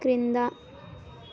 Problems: none marked